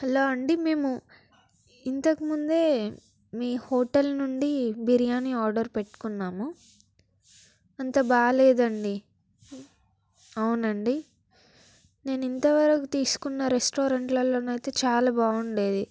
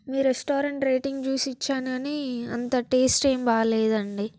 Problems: background sounds at intervals